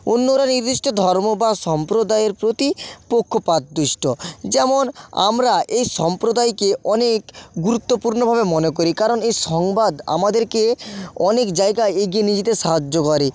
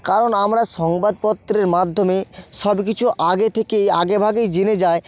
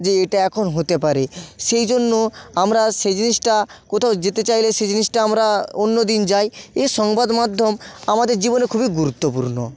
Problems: constant background noise, background conversations at intervals